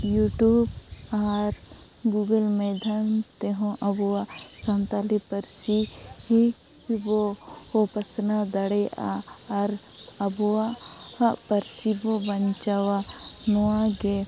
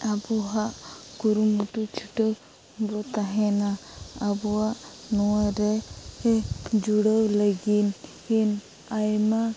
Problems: constant background noise